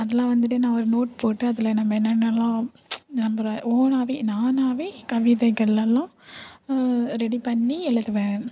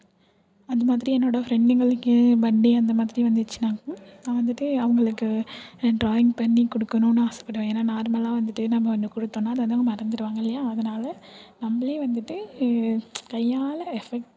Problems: none marked